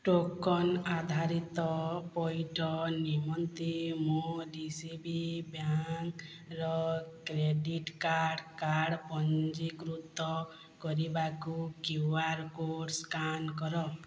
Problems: low volume